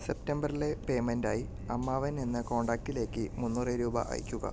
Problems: low volume